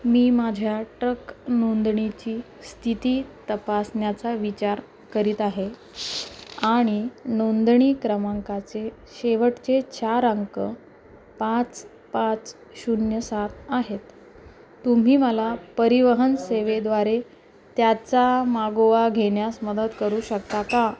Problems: constant background noise, continuous background conversations